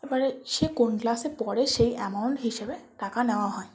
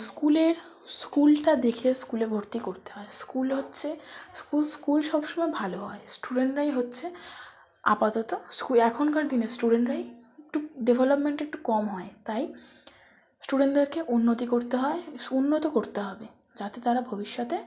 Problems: constant background noise